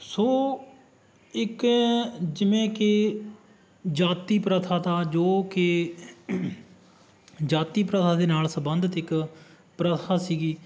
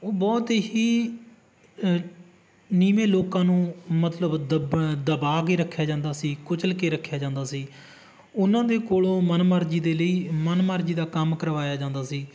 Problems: background sounds at intervals